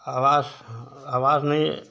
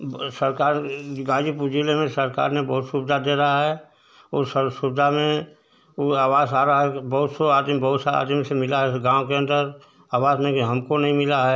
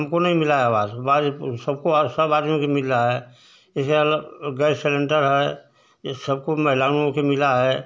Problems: constant background noise